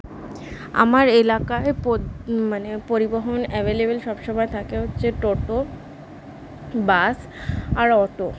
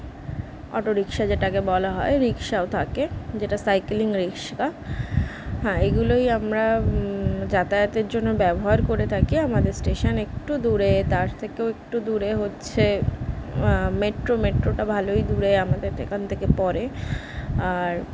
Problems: none marked